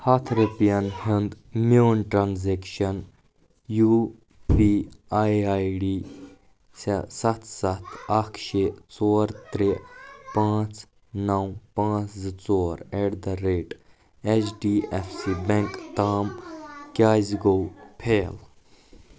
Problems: background sounds at intervals